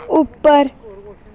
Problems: constant background noise